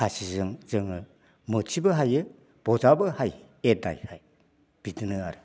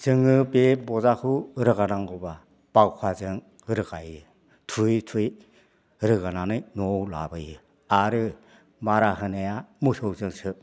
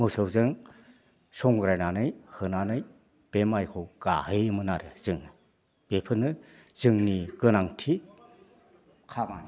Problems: constant background noise